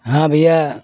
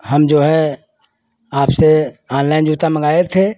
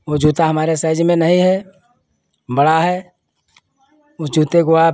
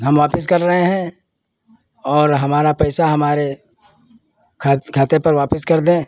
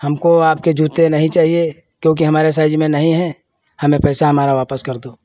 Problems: none marked